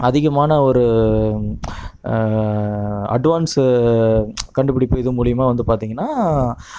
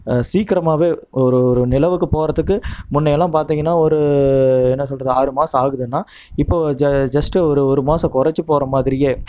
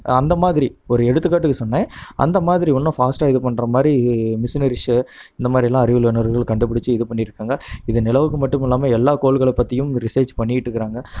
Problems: none marked